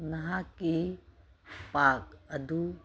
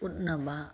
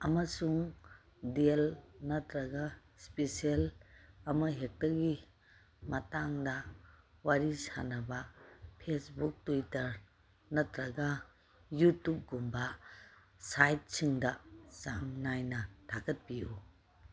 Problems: none marked